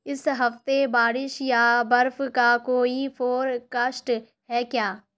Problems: none marked